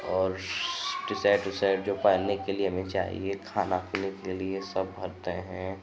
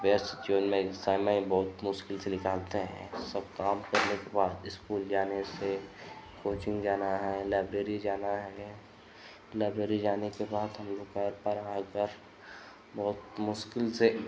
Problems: constant background noise